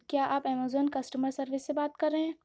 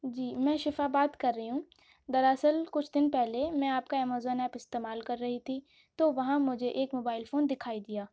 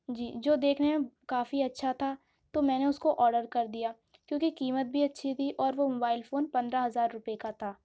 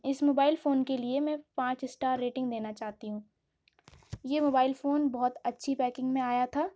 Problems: none marked